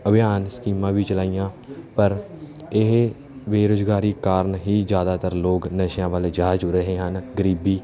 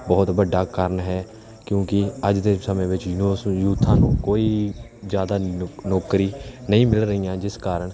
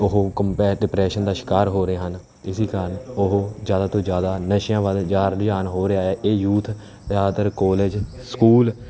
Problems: background sounds at intervals, background conversations at intervals